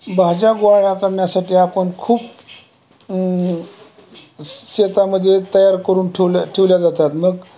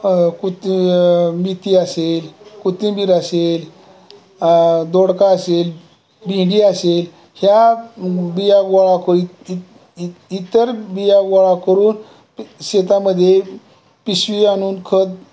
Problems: none marked